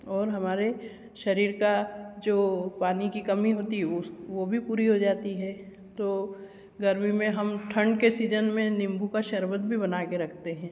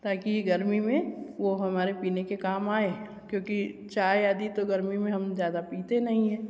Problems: constant background noise, echo